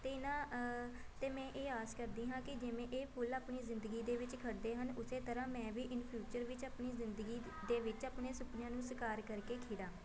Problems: continuous background conversations